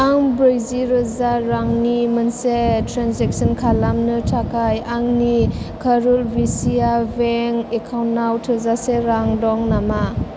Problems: none marked